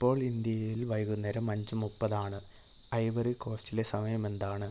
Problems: low volume